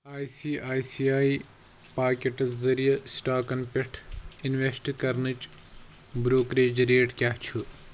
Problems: constant background noise